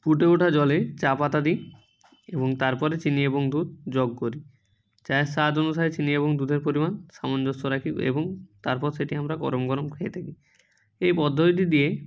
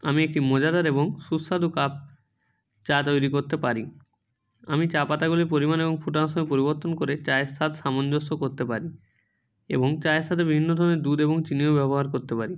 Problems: none marked